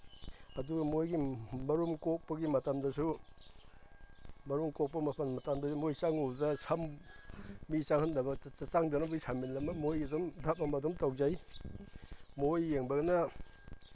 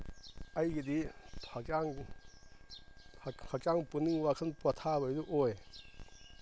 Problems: none marked